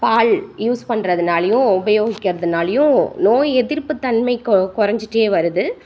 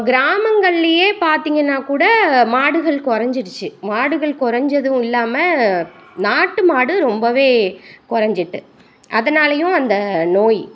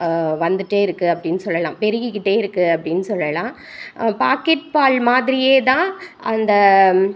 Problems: none marked